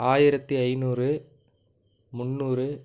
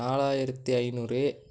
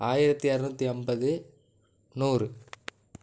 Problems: none marked